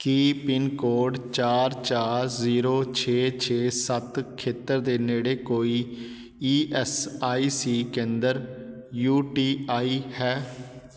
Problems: background sounds at intervals